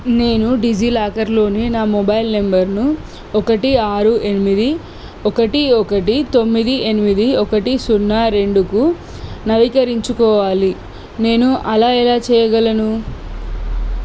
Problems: constant background noise